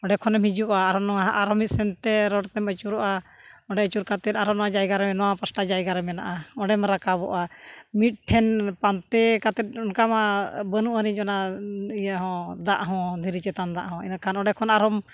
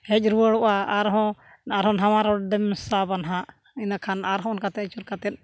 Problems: none marked